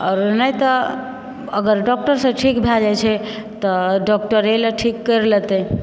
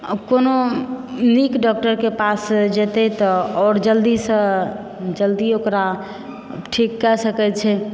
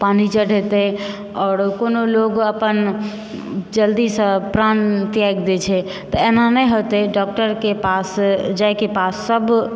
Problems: background sounds at intervals